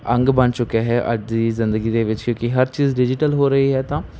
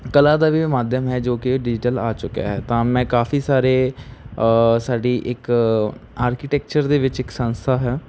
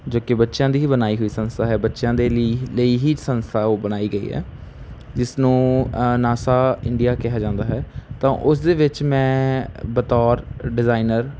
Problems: background sounds at intervals